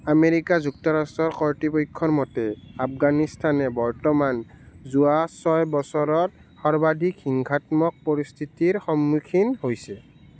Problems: none marked